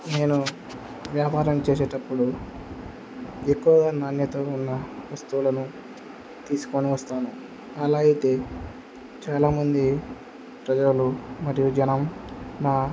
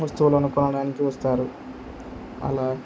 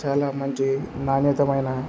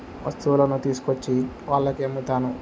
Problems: none marked